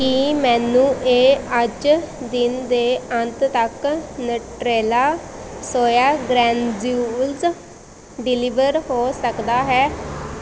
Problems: constant background noise